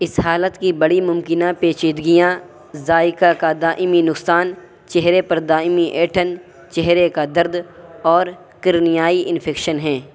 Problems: constant background noise